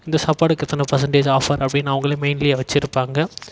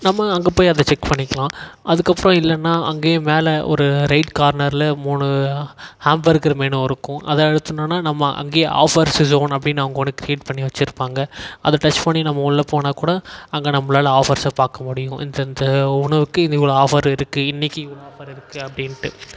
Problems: echo